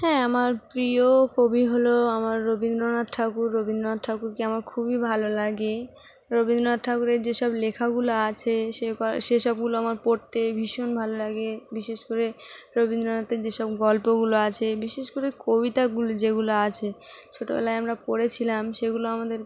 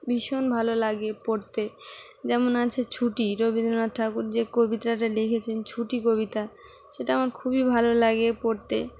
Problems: constant background noise